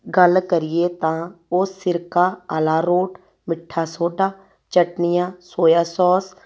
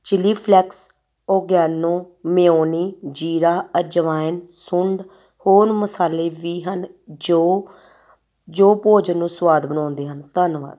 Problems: background sounds at intervals